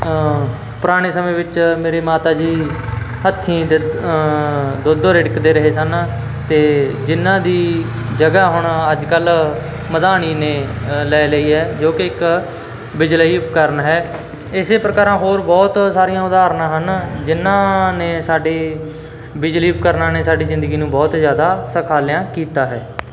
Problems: constant background noise